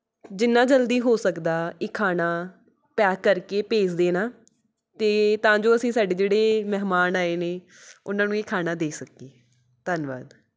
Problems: background sounds at intervals